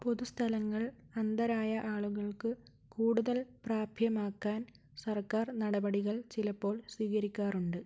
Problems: low volume